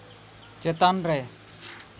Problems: constant background noise